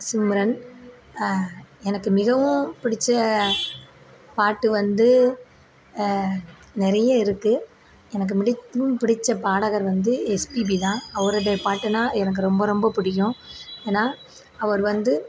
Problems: background sounds at intervals